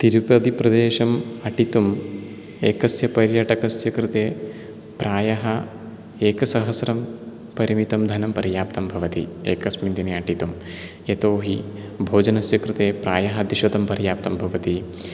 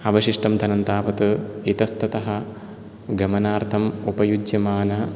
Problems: none marked